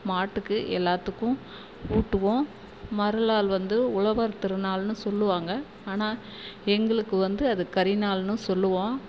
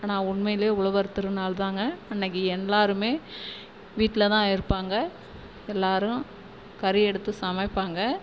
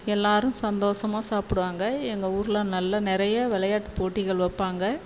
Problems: constant background noise